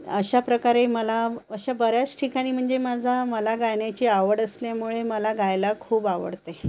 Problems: constant background noise